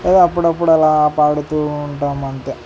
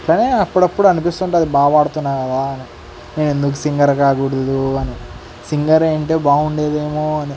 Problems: constant background noise